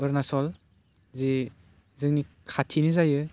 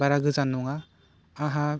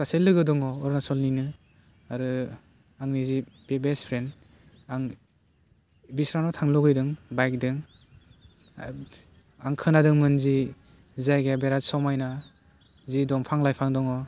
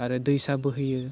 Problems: constant background noise